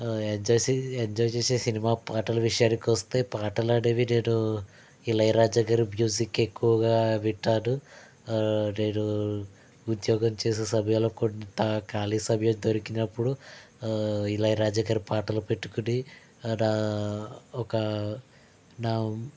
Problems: none marked